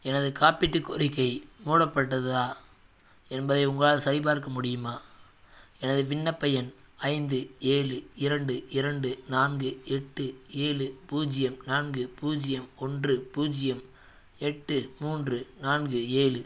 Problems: none marked